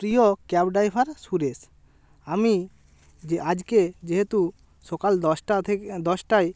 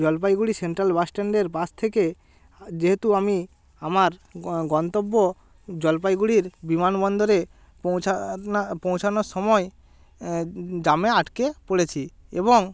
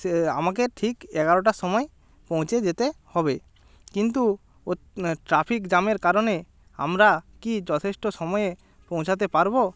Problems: constant background noise